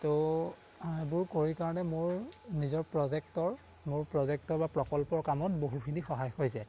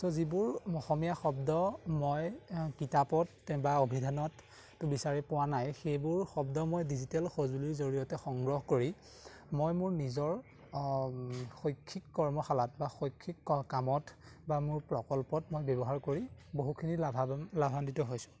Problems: background sounds at intervals